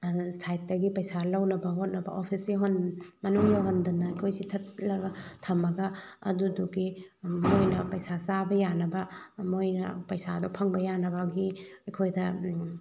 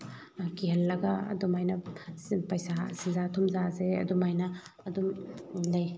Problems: background sounds at intervals